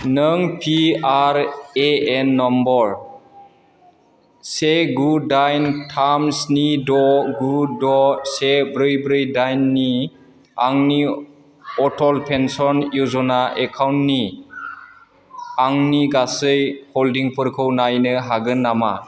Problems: constant background noise